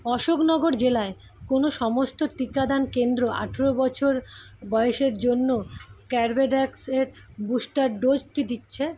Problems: constant background noise